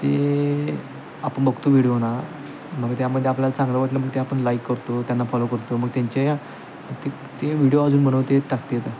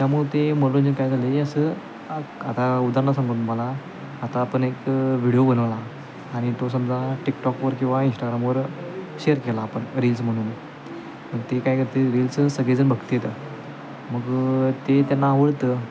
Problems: constant background noise, continuous background conversations